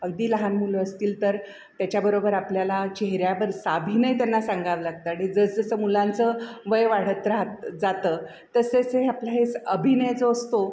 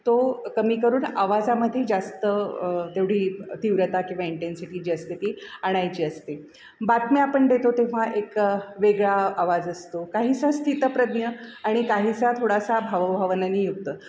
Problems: background sounds at intervals